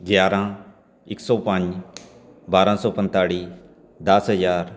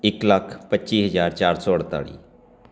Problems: none marked